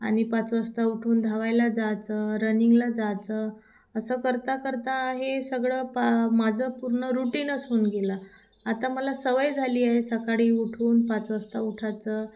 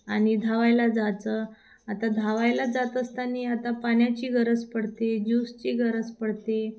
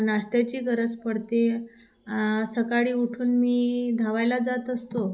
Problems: constant background noise